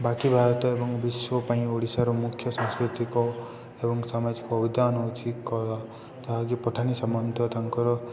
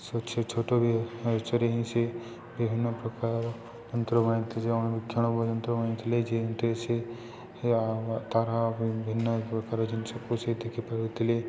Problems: constant background noise, continuous background conversations